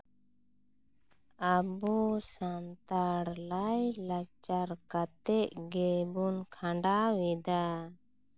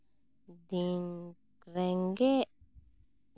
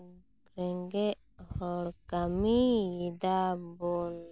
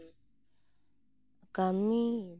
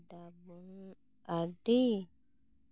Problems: constant background noise